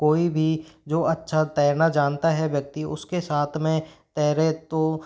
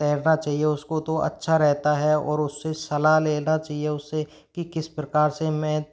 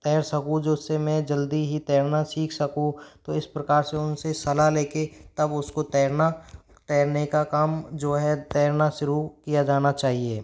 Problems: background sounds at intervals